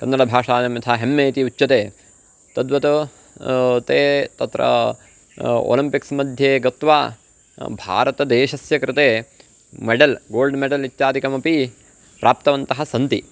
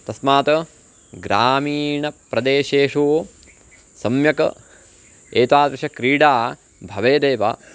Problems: constant background noise